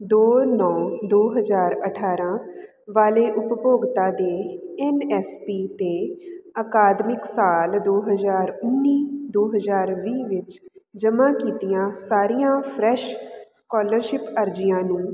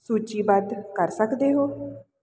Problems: constant background noise